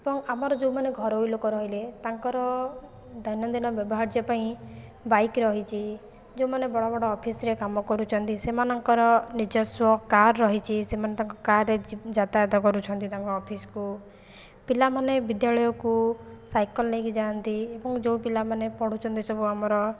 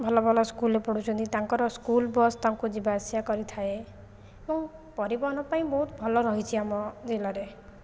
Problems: none marked